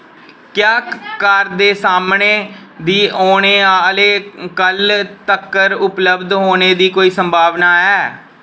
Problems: background sounds at intervals